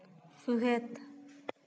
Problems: background sounds at intervals